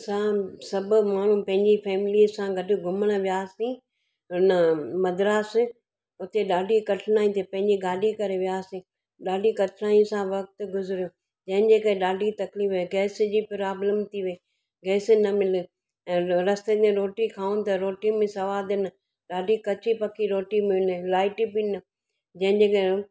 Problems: none marked